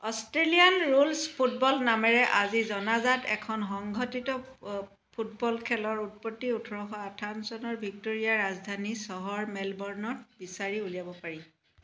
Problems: none marked